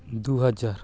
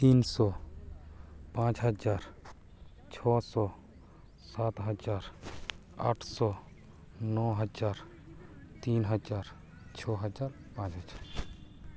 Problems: constant background noise, continuous background conversations